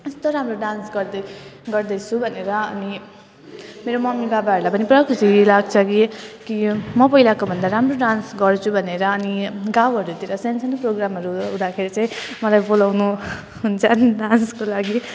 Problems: constant background noise